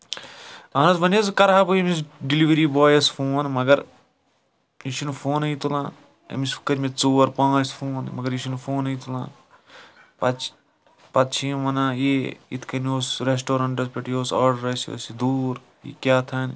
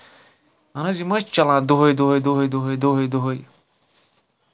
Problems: none marked